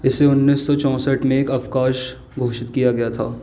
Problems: constant background noise